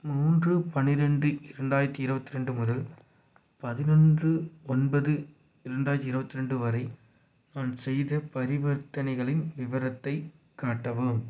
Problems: none marked